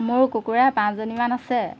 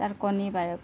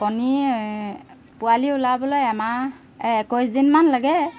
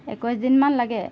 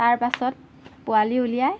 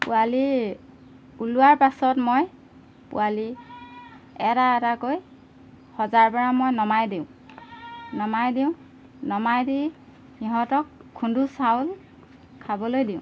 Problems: background sounds at intervals